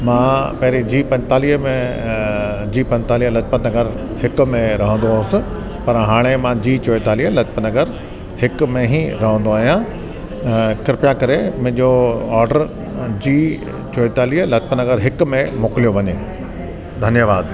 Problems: constant background noise